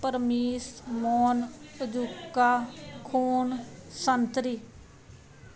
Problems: background sounds at intervals